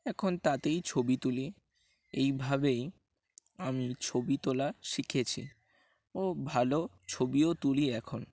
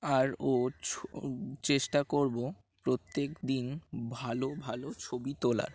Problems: background sounds at intervals